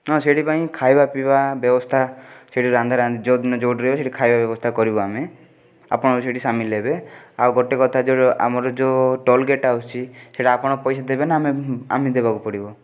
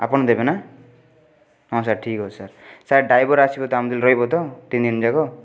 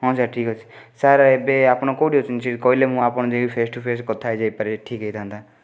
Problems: background sounds at intervals